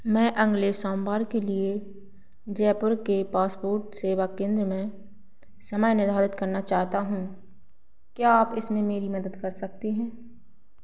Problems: none marked